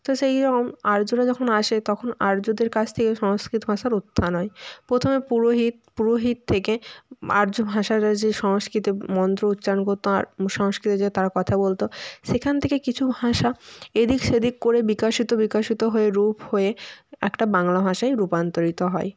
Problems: none marked